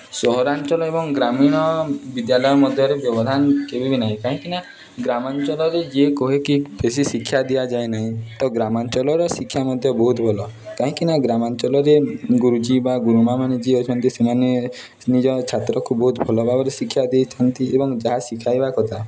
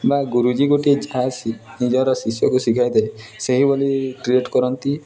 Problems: constant background noise